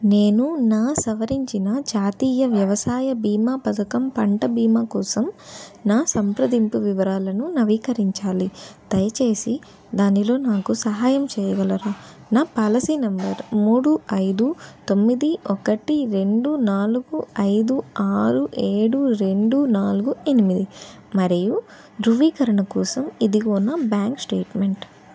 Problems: constant background noise